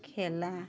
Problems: background sounds at intervals